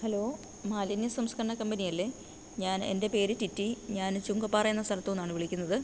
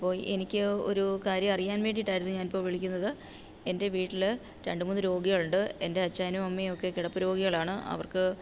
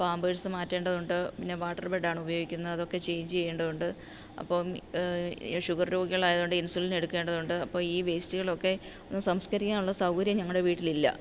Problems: low volume